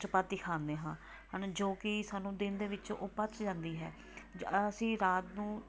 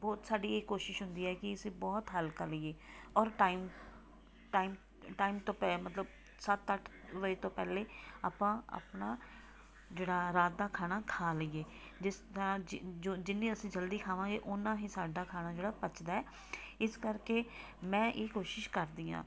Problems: background sounds at intervals